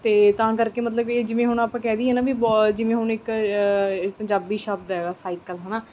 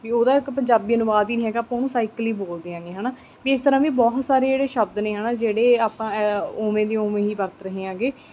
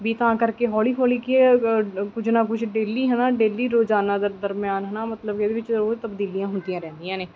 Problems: background sounds at intervals